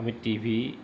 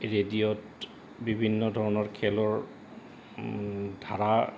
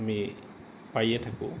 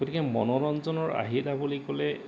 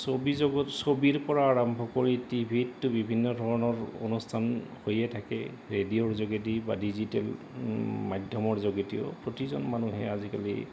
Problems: none marked